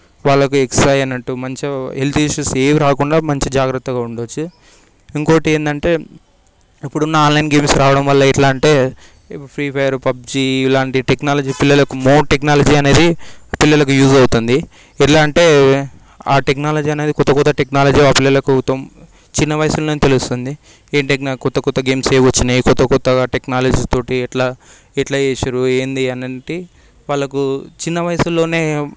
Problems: background sounds at intervals